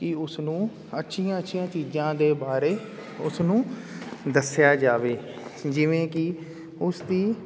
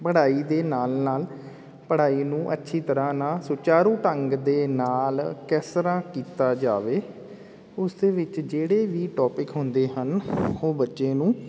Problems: constant background noise